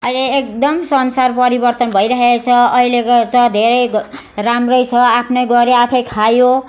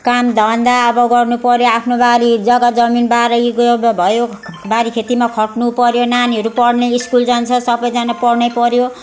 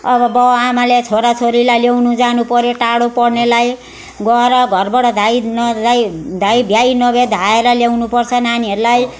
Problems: constant background noise